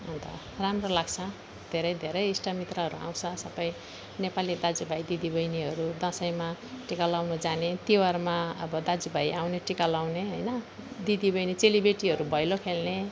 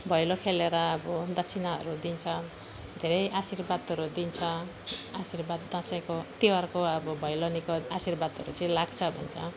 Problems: none marked